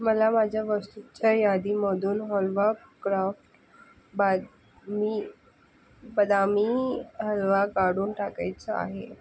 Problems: background sounds at intervals